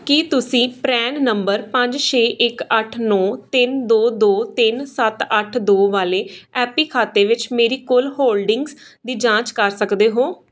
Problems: none marked